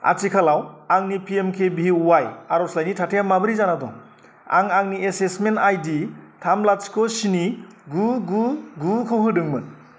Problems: none marked